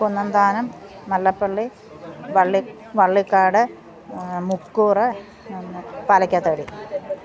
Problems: constant background noise, background conversations at intervals